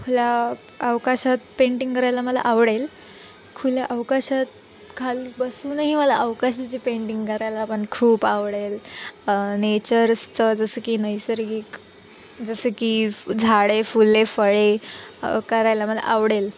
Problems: none marked